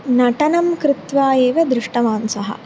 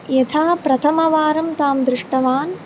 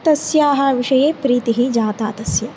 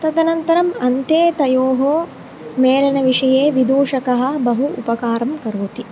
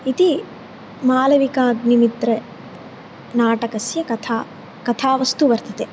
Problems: constant background noise